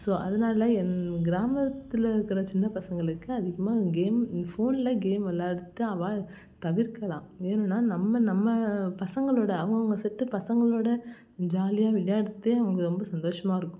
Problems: constant background noise